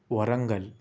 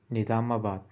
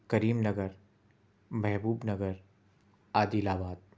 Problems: constant background noise